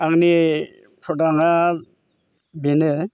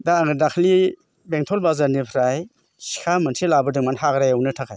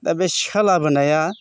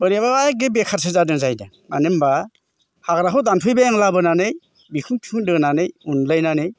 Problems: constant background noise